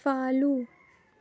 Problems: none marked